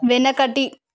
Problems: none marked